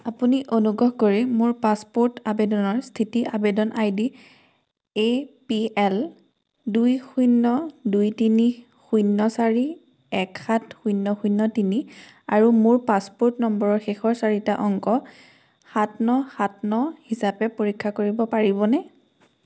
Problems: constant background noise